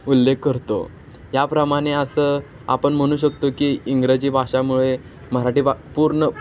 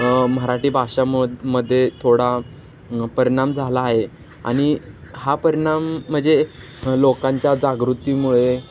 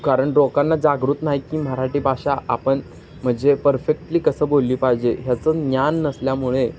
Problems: constant background noise, background conversations at intervals